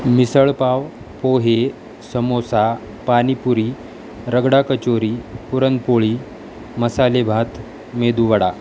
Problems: constant background noise